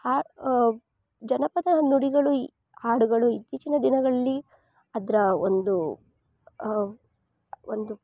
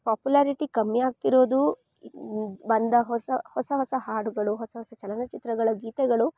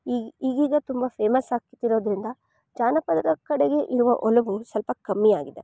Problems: none marked